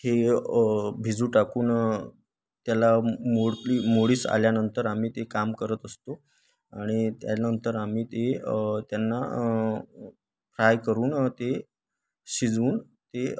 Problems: none marked